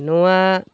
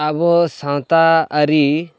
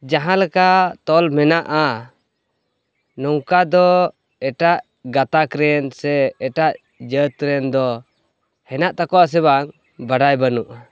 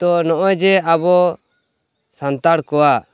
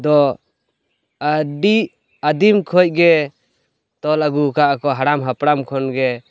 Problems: constant background noise, background conversations at intervals